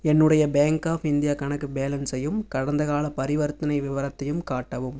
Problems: none marked